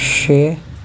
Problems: constant background noise